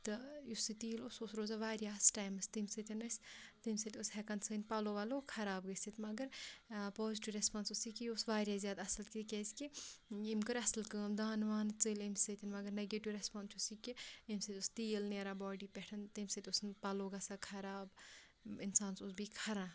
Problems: background sounds at intervals